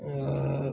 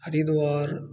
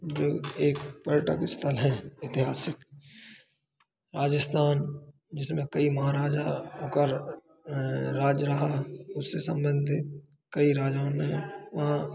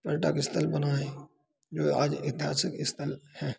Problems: background sounds at intervals